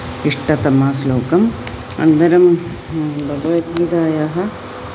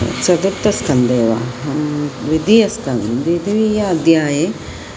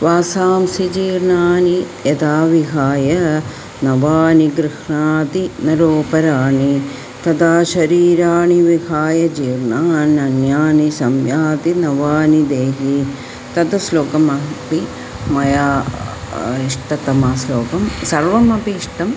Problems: constant background noise